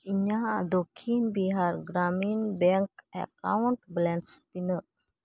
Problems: none marked